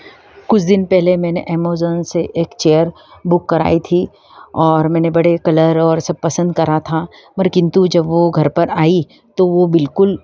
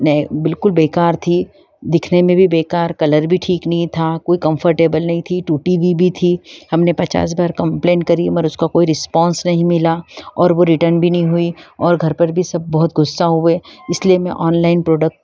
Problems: background sounds at intervals